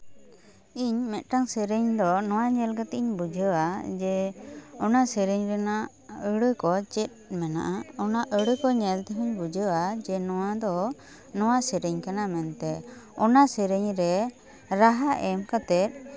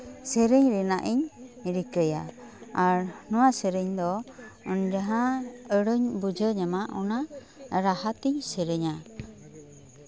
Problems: background sounds at intervals, continuous background conversations